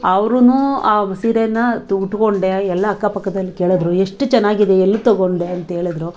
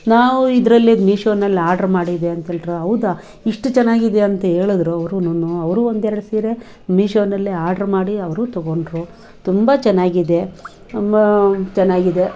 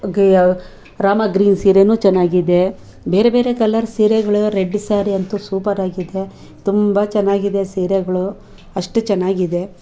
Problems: background sounds at intervals, background conversations at intervals